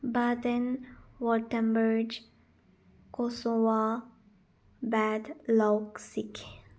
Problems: low volume